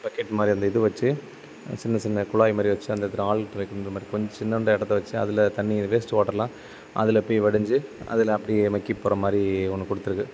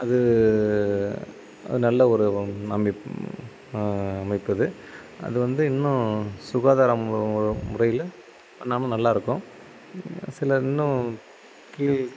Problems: constant background noise